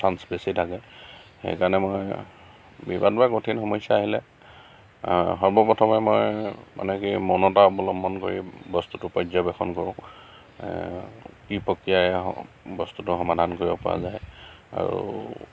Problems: none marked